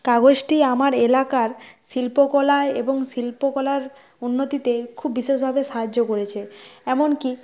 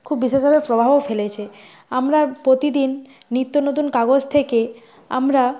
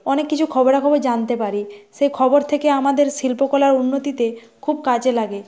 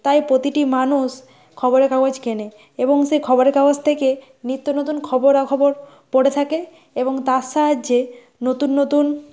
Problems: background sounds at intervals